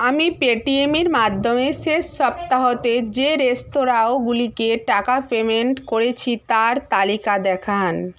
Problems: background conversations at intervals